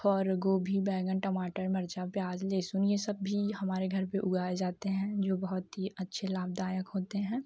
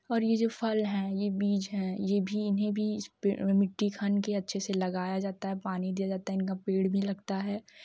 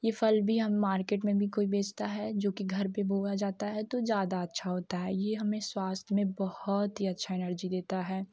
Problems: constant background noise, low volume